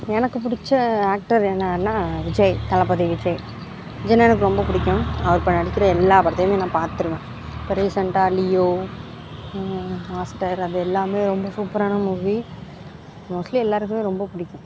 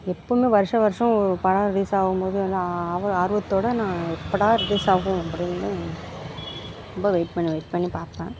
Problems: background sounds at intervals